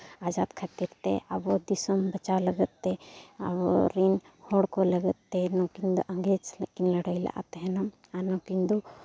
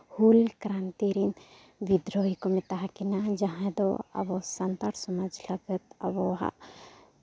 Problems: background sounds at intervals